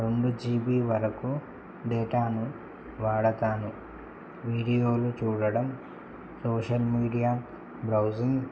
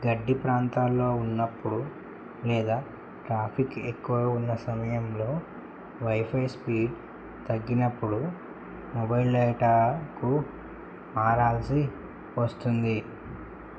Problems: constant background noise